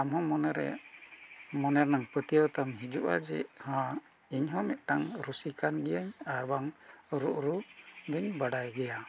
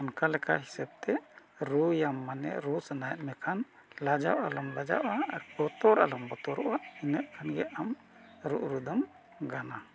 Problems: constant background noise